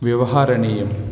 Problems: background sounds at intervals